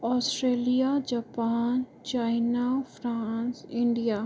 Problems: none marked